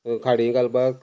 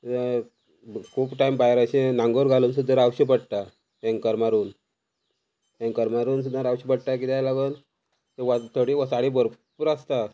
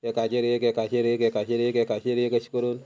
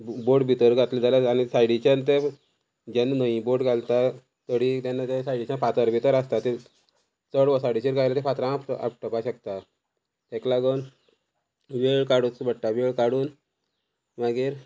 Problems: constant background noise